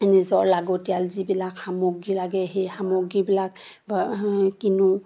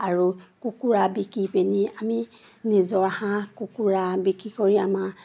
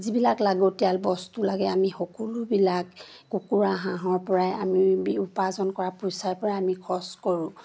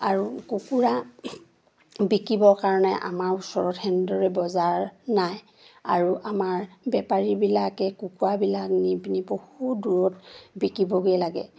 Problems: none marked